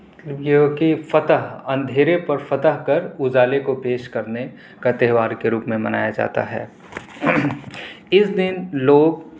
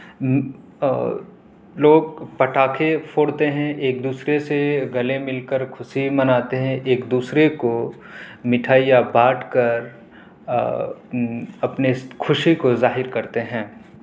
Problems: background sounds at intervals